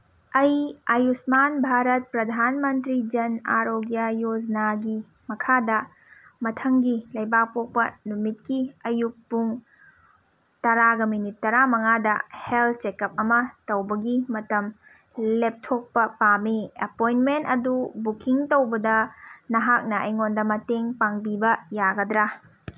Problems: none marked